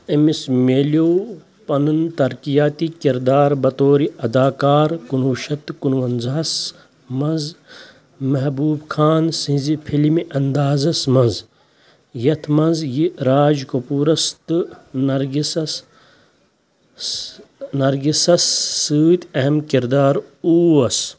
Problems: constant background noise